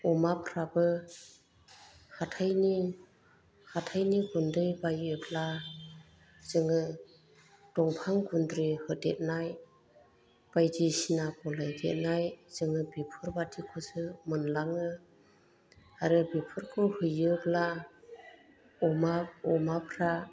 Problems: low volume